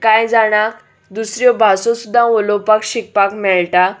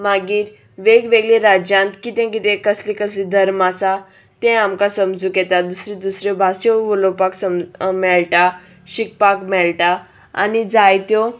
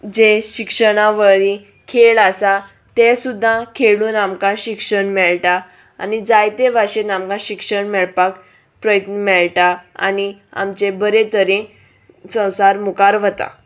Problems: none marked